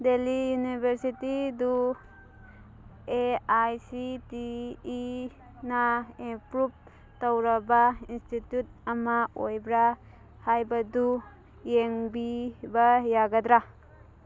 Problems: background sounds at intervals, background conversations at intervals